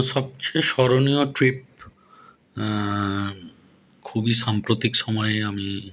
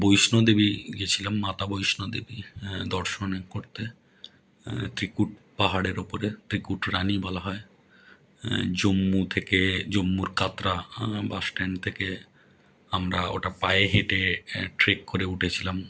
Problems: none marked